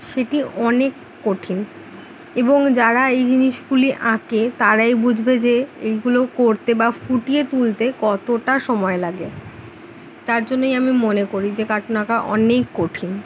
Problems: background sounds at intervals